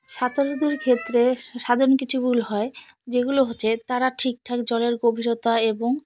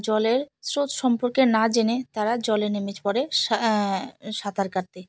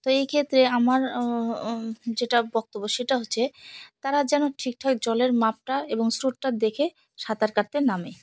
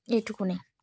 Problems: none marked